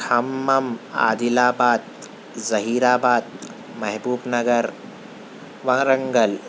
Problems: none marked